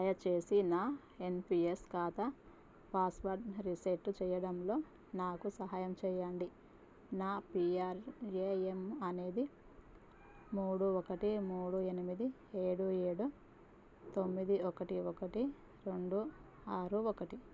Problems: none marked